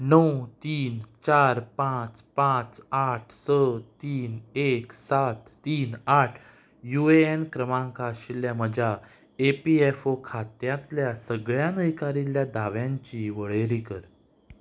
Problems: background sounds at intervals